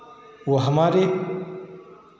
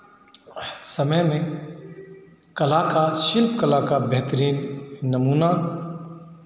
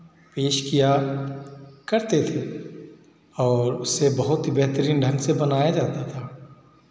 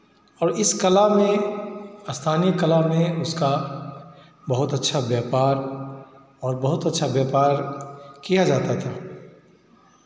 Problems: background sounds at intervals, background conversations at intervals